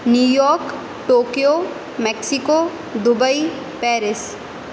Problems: constant background noise